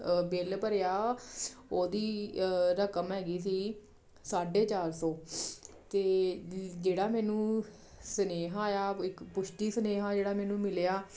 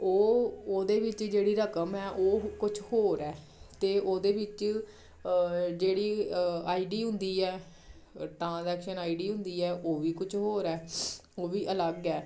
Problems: none marked